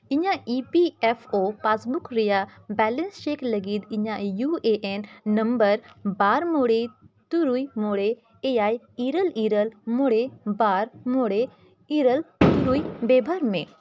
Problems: background sounds at intervals